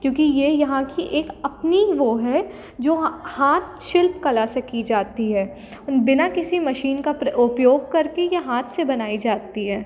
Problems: constant background noise